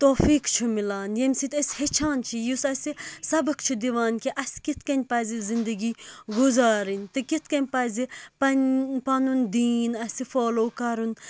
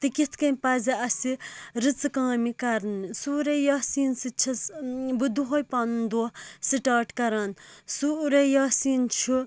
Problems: none marked